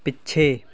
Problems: background conversations at intervals